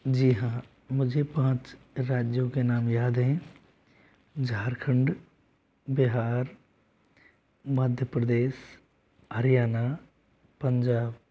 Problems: background sounds at intervals